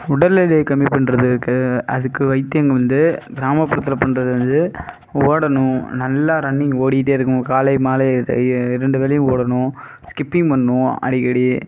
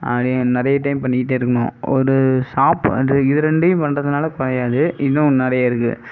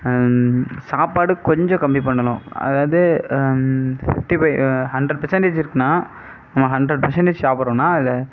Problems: none marked